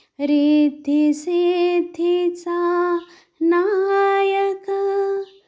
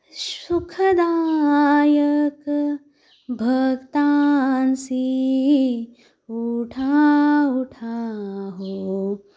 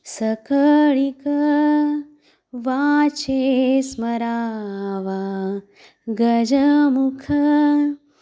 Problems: constant background noise